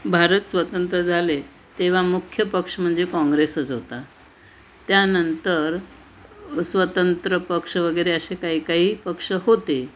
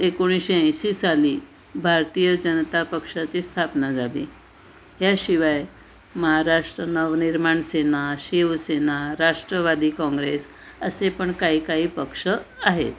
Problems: background sounds at intervals